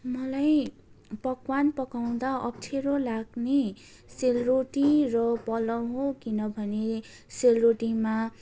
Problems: constant background noise, continuous background conversations